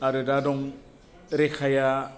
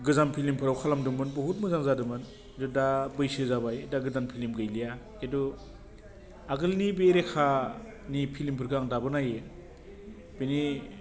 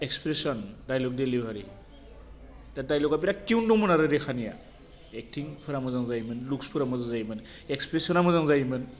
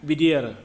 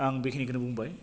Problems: none marked